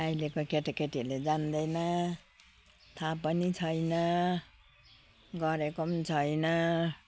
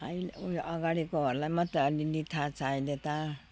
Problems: constant background noise